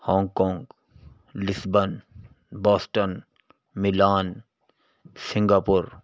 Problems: none marked